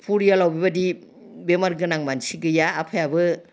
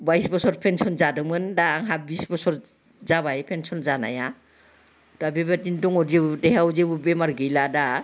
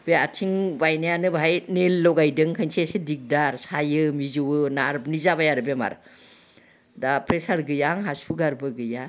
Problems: background sounds at intervals